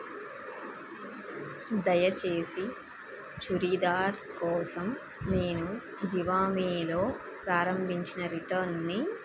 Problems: constant background noise